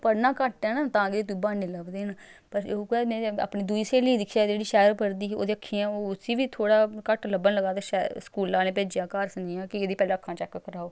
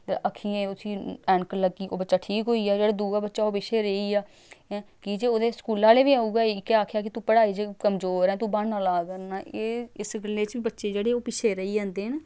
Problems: background sounds at intervals